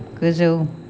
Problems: none marked